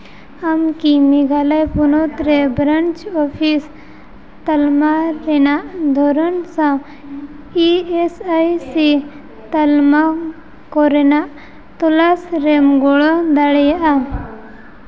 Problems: constant background noise, background conversations at intervals